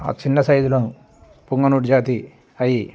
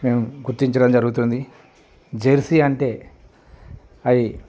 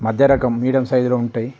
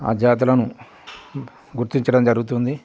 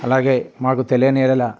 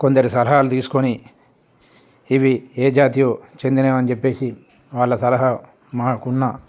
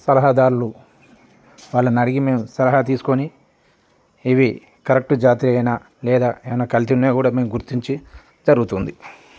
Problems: none marked